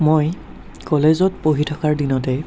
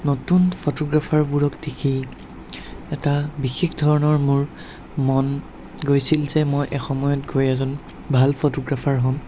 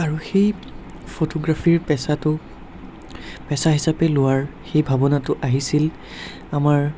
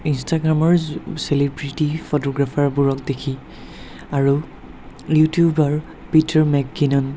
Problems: none marked